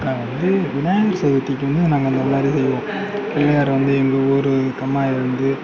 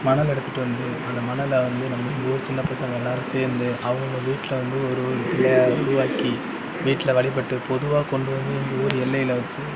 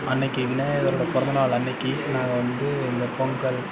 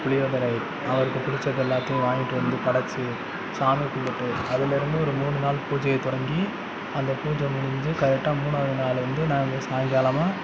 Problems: background conversations at intervals